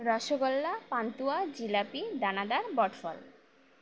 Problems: none marked